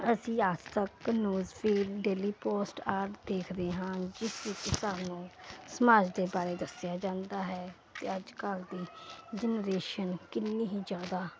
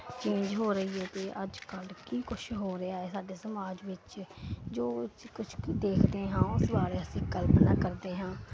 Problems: none marked